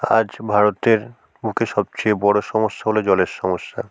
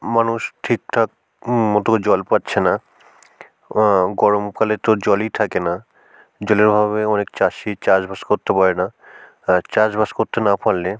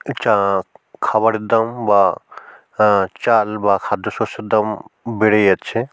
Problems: background sounds at intervals